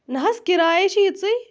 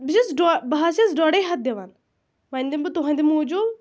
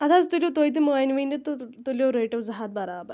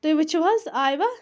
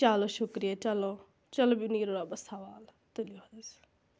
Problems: constant background noise